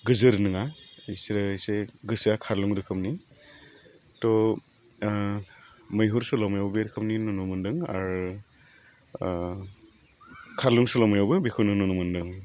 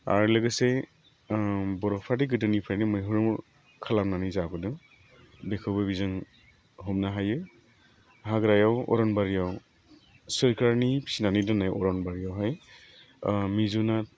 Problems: low volume